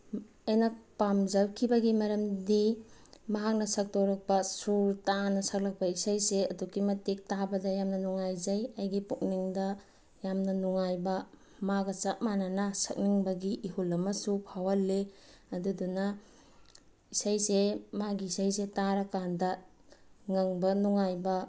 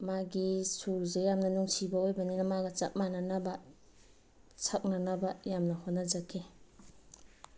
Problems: background sounds at intervals